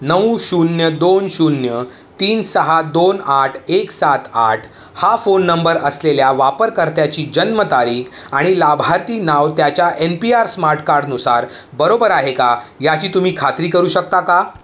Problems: none marked